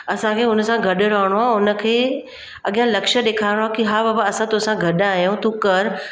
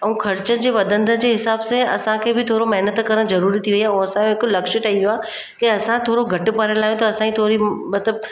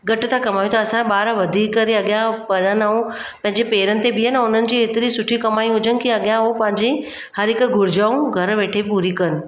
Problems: constant background noise